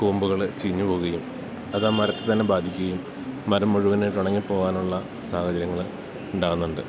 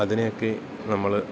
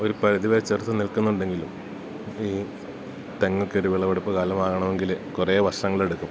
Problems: none marked